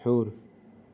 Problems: background sounds at intervals